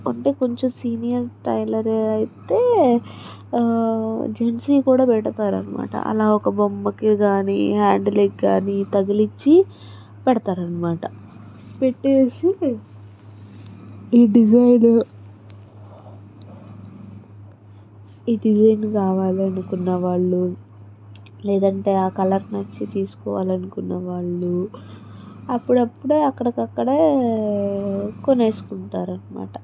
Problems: none marked